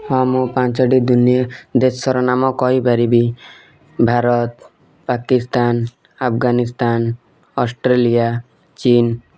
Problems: background sounds at intervals